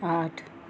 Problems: background sounds at intervals